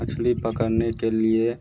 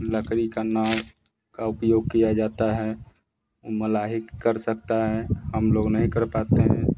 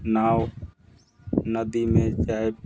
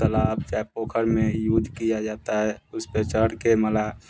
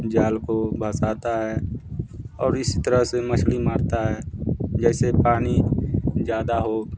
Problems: background sounds at intervals